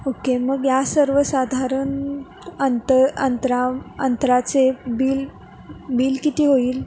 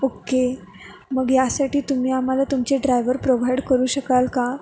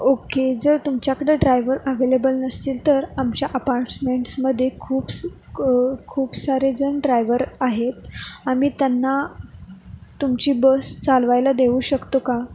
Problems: background sounds at intervals